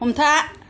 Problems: background sounds at intervals